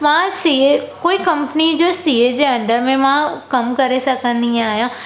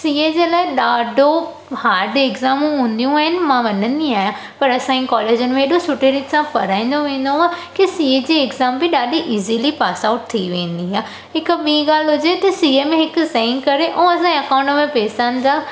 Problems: echo